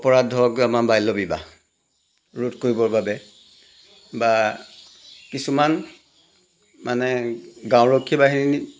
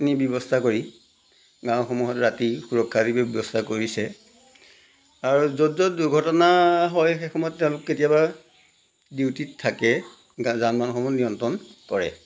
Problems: none marked